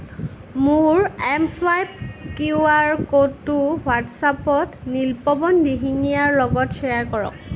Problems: constant background noise, background conversations at intervals